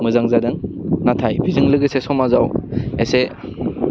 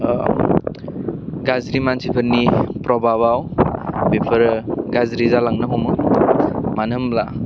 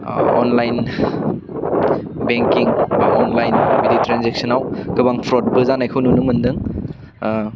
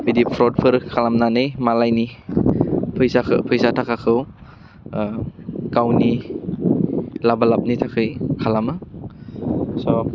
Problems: constant background noise